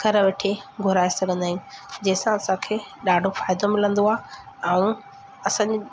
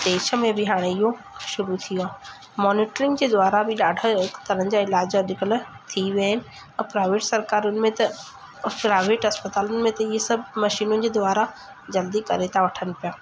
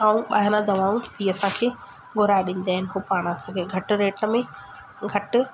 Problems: constant background noise